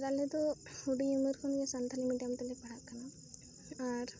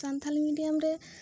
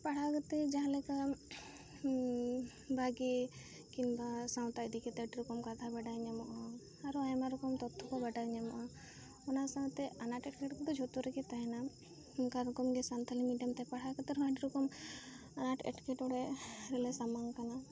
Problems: constant background noise, background conversations at intervals, low volume